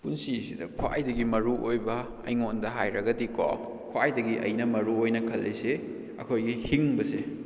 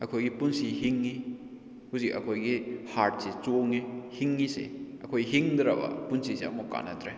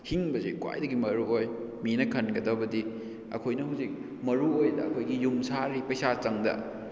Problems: none marked